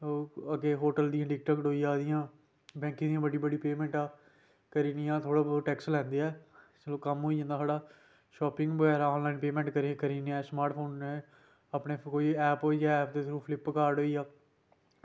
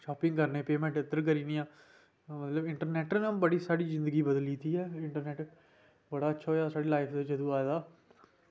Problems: constant background noise